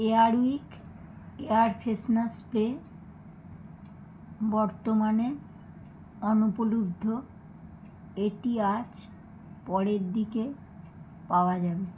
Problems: background sounds at intervals